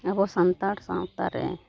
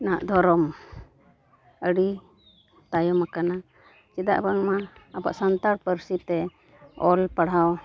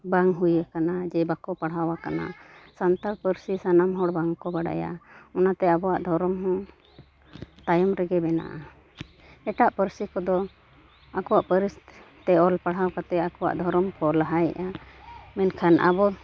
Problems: none marked